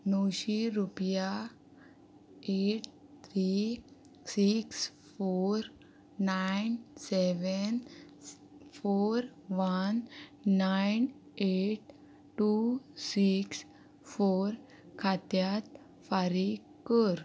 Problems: constant background noise